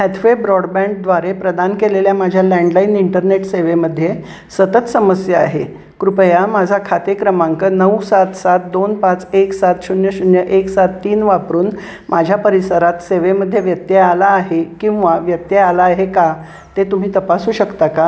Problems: constant background noise